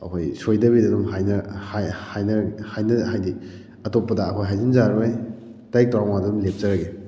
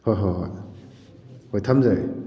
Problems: none marked